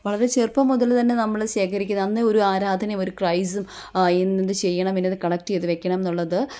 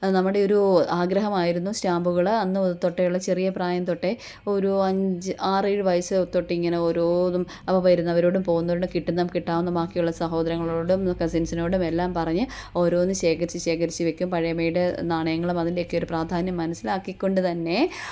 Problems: none marked